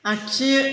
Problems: background sounds at intervals